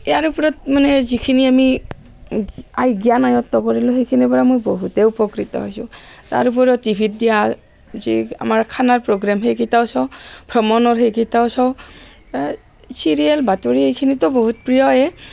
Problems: constant background noise